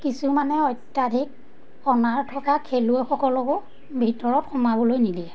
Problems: constant background noise